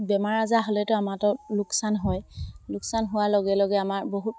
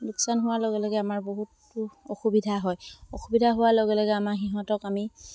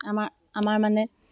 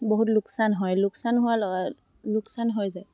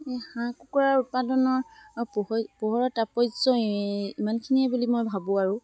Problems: constant background noise